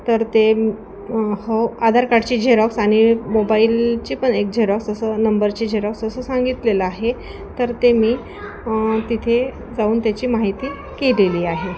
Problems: constant background noise, continuous background conversations